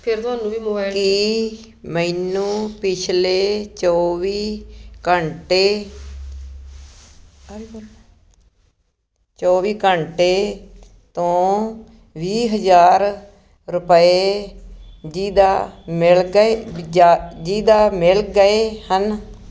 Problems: constant background noise